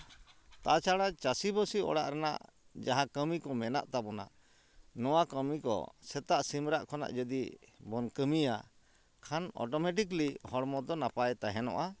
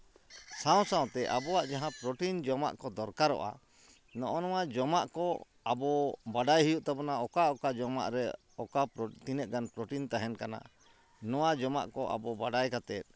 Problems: constant background noise, background conversations at intervals